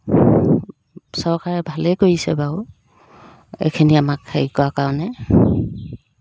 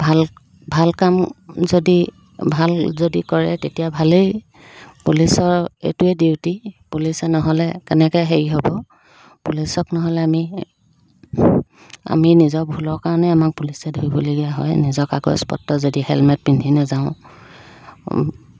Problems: background sounds at intervals